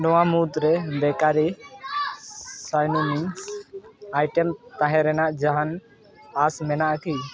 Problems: continuous background conversations